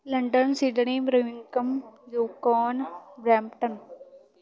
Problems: continuous background conversations